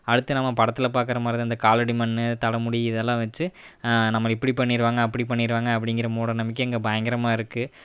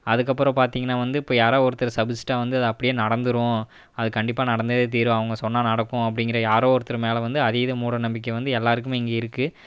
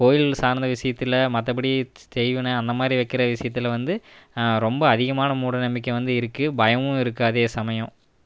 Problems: none marked